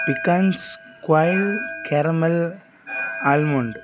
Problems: constant background noise